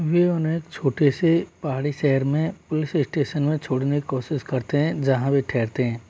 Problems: constant background noise